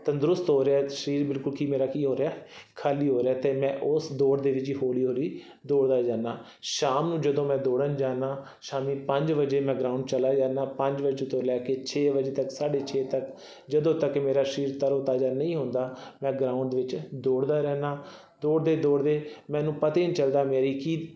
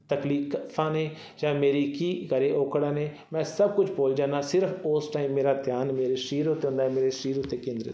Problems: background sounds at intervals